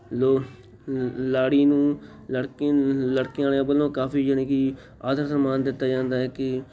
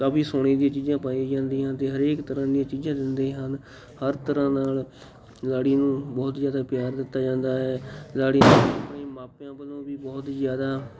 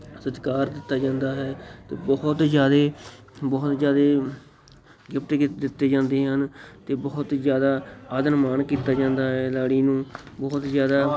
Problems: none marked